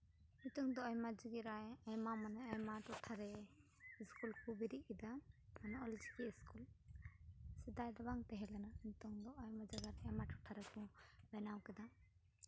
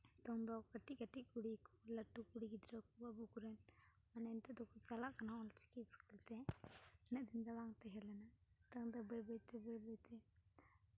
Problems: constant background noise